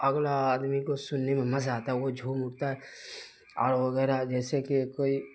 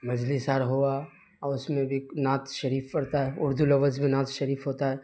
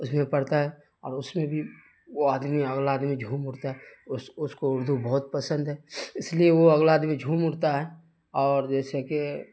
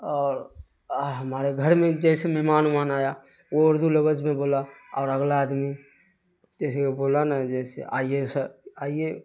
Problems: constant background noise